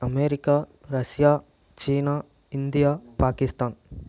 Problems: none marked